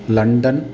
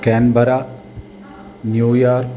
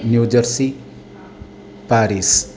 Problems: continuous background conversations